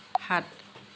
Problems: constant background noise